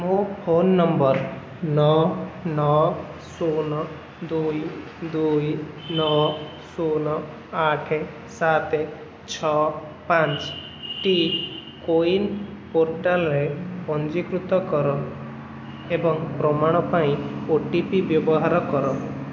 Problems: constant background noise